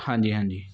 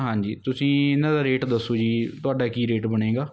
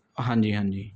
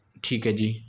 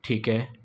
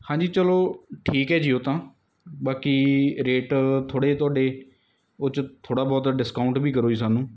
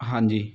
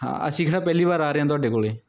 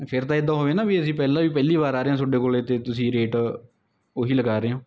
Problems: none marked